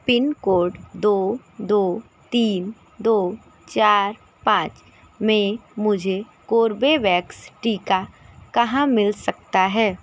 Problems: none marked